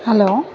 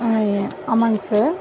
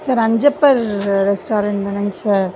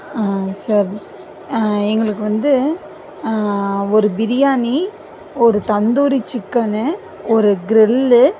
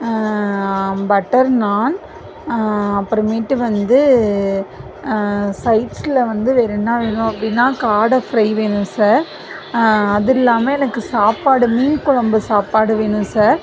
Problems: constant background noise